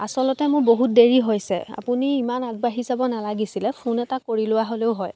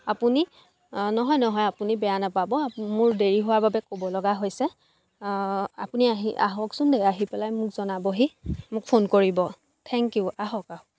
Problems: background sounds at intervals, background conversations at intervals